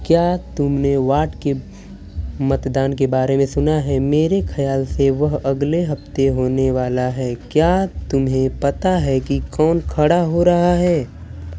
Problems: none marked